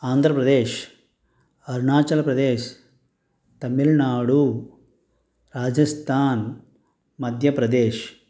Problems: none marked